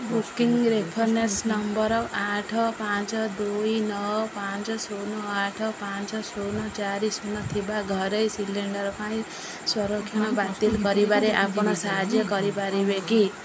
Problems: background sounds at intervals, background conversations at intervals